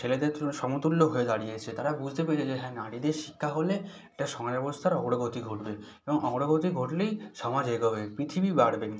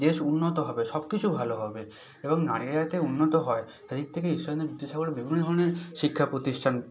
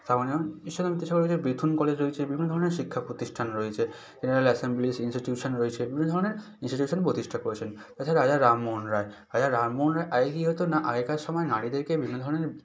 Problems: none marked